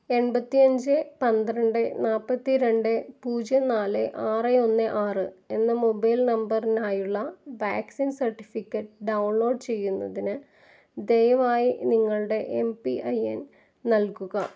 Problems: none marked